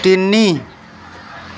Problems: constant background noise